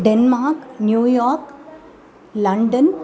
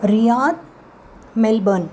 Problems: background conversations at intervals